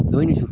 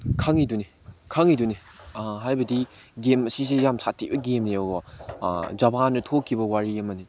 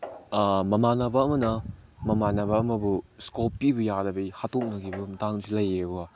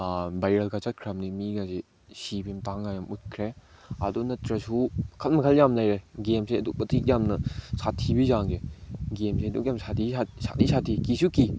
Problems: none marked